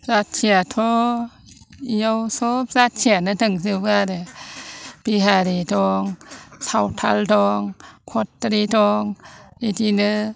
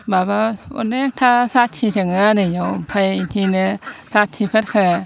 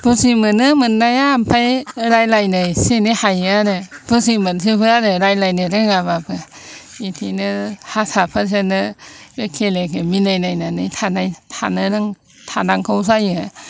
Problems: none marked